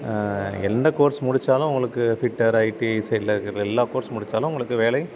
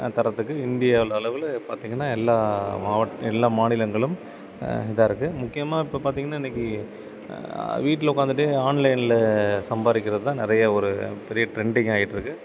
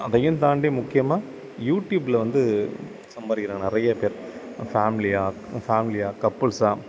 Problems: none marked